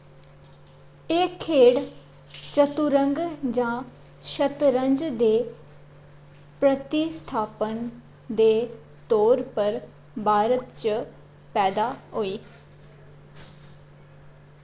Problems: constant background noise